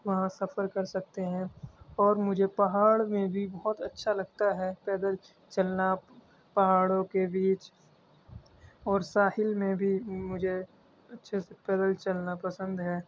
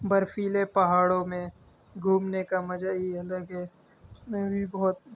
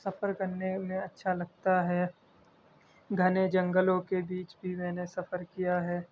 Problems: constant background noise